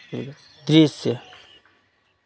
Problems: background conversations at intervals